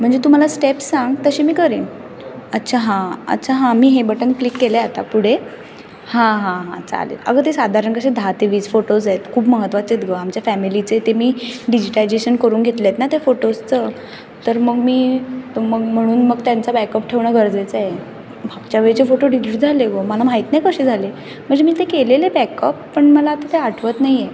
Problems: constant background noise, background conversations at intervals